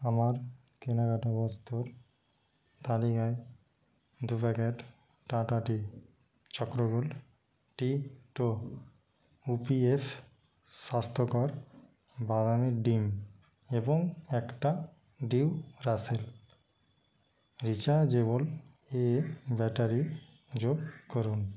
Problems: constant background noise, background conversations at intervals